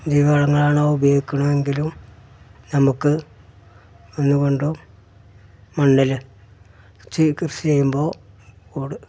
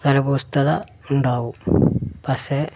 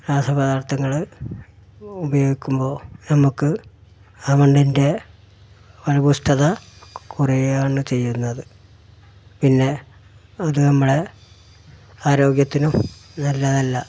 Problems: background sounds at intervals